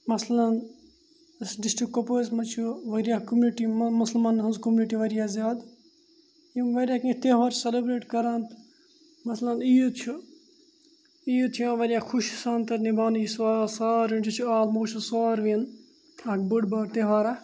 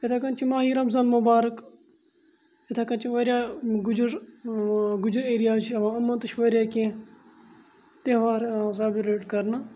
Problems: none marked